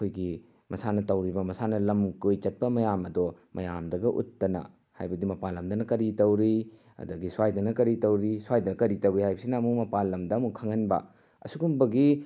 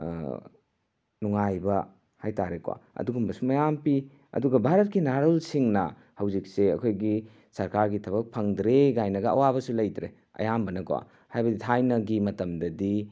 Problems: none marked